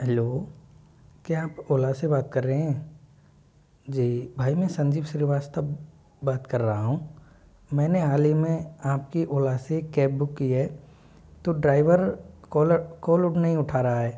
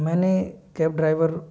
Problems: constant background noise